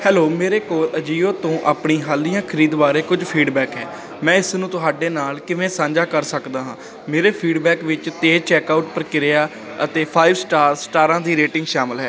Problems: constant background noise